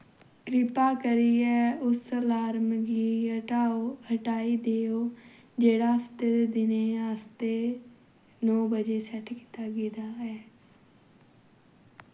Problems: background sounds at intervals